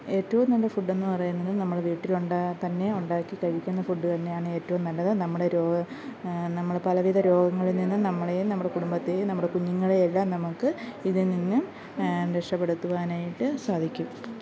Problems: background sounds at intervals